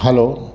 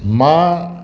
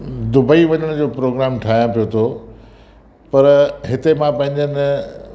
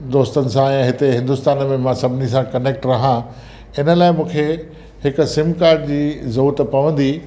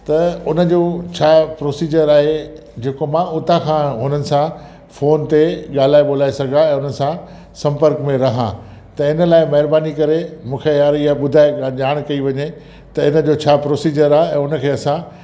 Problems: constant background noise, echo